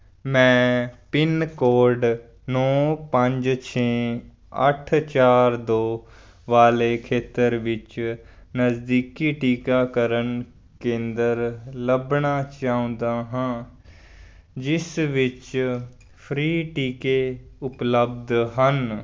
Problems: background sounds at intervals